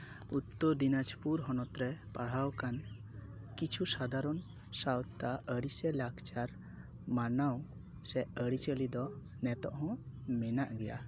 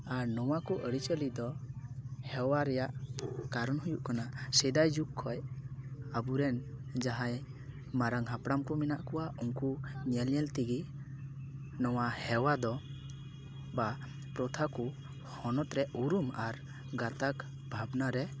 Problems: none marked